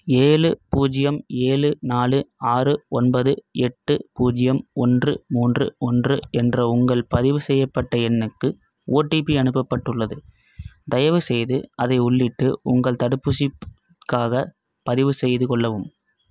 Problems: none marked